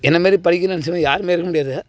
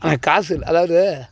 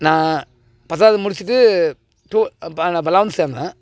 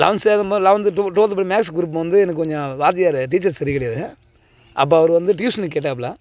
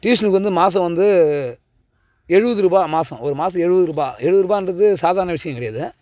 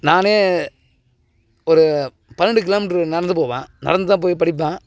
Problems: background sounds at intervals